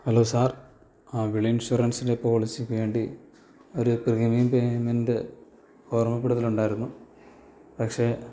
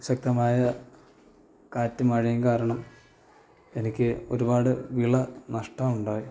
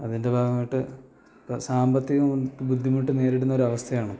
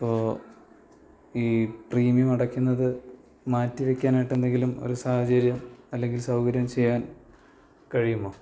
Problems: low volume